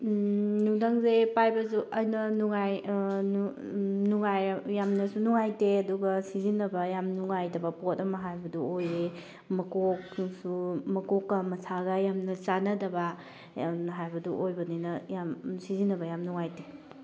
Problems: none marked